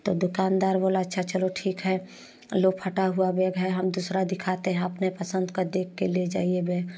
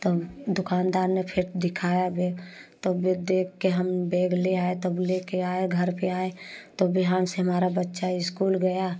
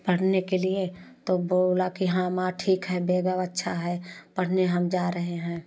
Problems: none marked